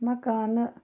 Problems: low volume